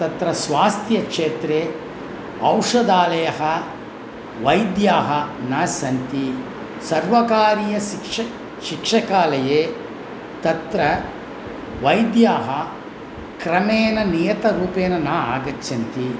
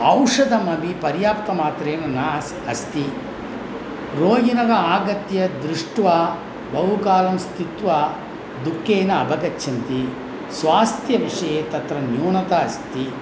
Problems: constant background noise